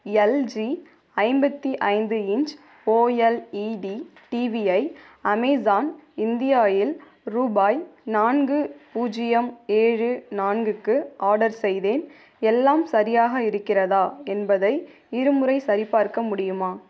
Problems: none marked